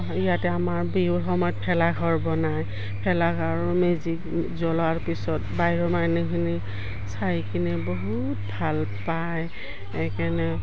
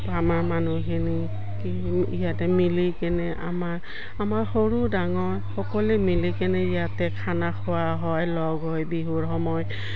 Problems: background sounds at intervals